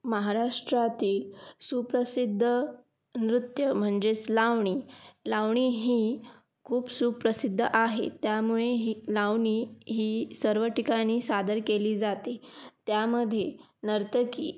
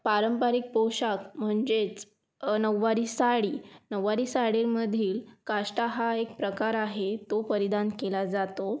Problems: none marked